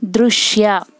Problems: none marked